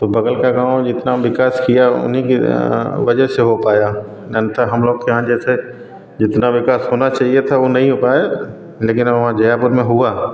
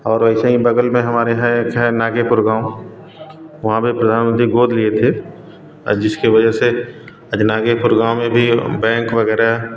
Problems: constant background noise